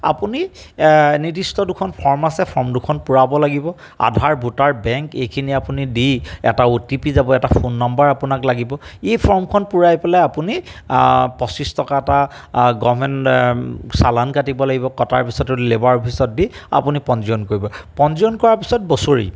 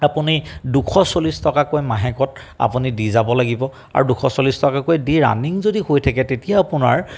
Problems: background sounds at intervals